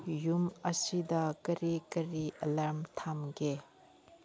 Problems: none marked